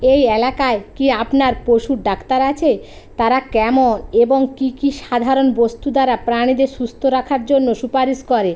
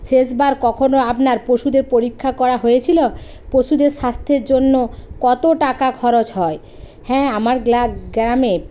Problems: constant background noise